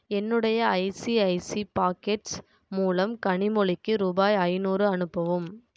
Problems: none marked